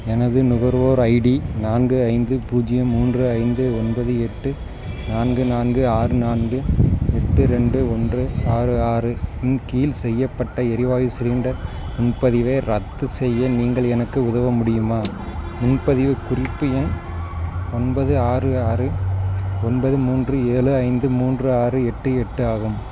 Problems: constant background noise